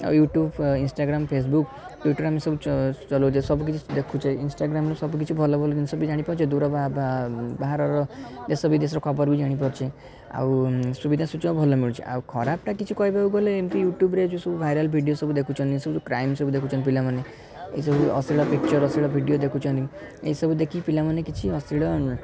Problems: constant background noise, continuous background conversations